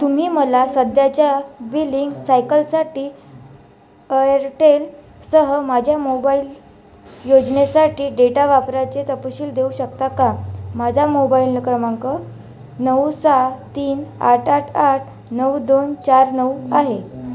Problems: constant background noise, background conversations at intervals